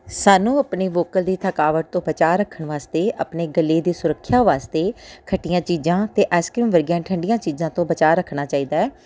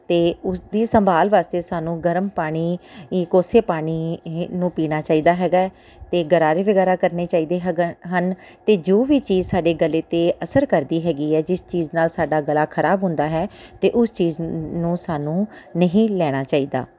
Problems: none marked